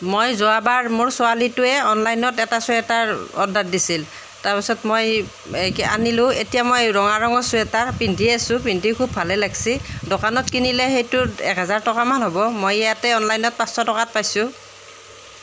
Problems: background sounds at intervals